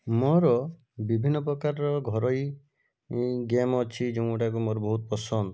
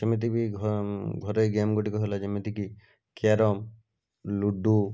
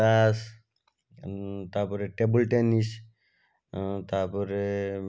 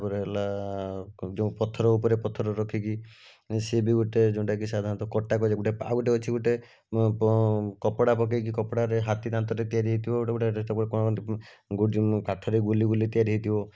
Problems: none marked